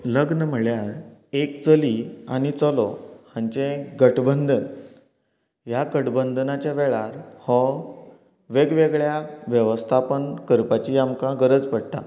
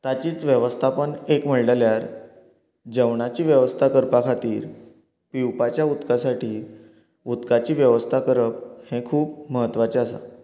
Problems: continuous background conversations